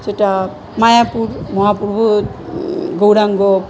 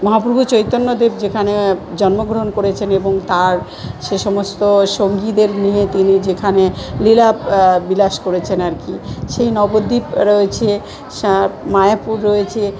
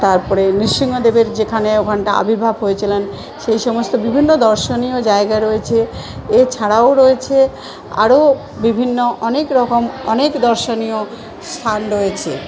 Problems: constant background noise, continuous background conversations